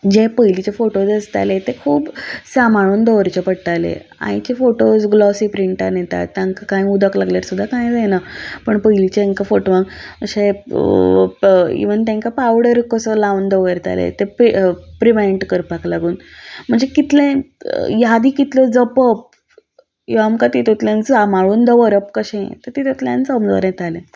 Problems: none marked